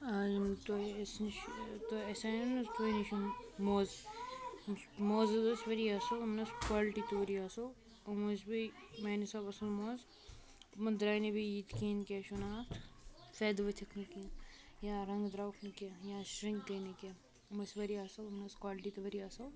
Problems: constant background noise, continuous background conversations